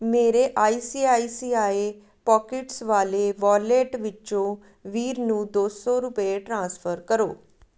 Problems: none marked